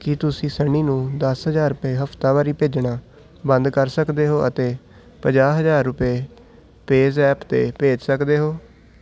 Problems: constant background noise